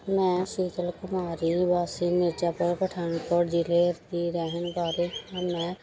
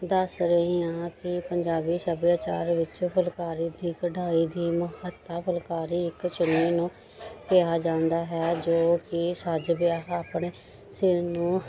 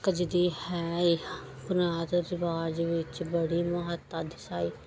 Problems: background sounds at intervals